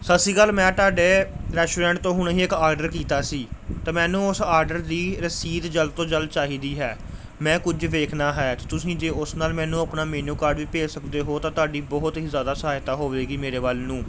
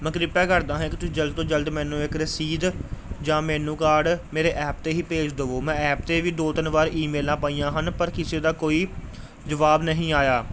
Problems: none marked